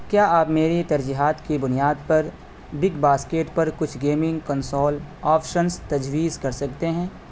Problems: constant background noise